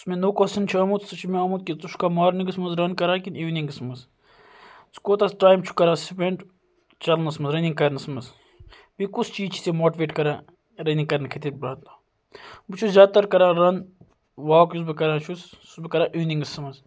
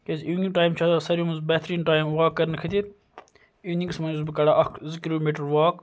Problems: background sounds at intervals